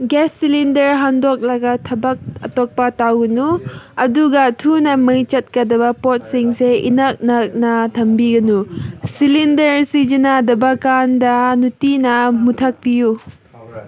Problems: none marked